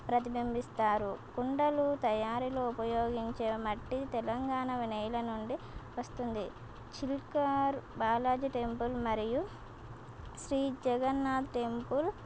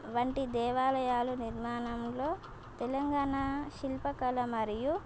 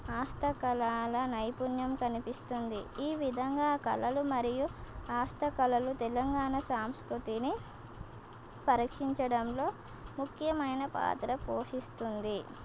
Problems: constant background noise